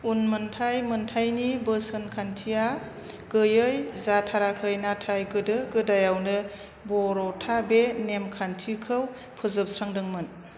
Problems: constant background noise